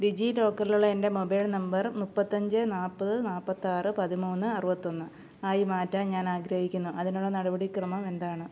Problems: low volume